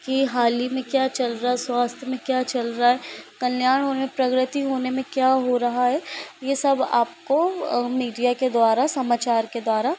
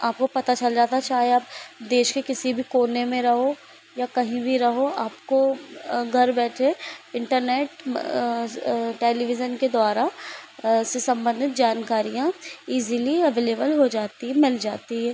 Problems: constant background noise